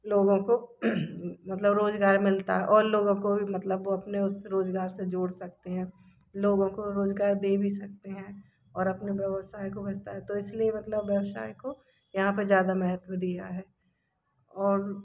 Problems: background sounds at intervals